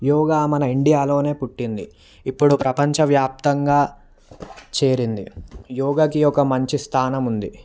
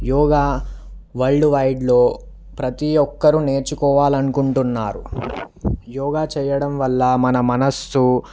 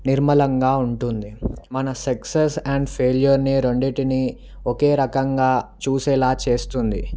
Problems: background sounds at intervals